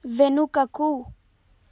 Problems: none marked